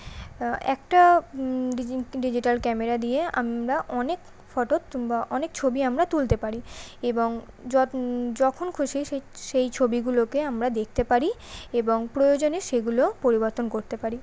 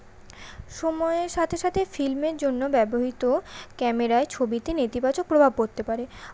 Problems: none marked